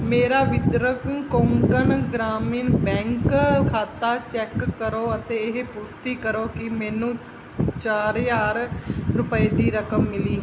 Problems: none marked